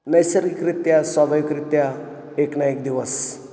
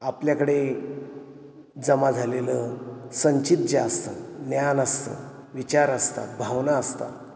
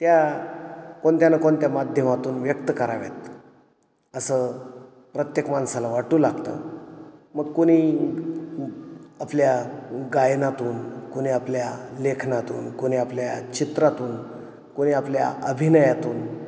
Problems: none marked